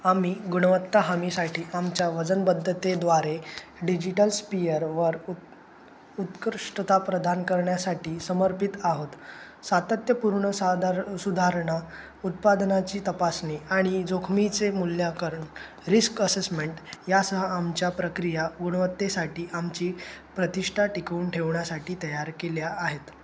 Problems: constant background noise